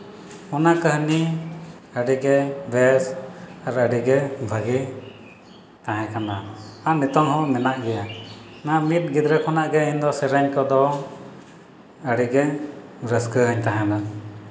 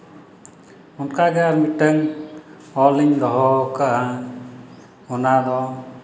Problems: none marked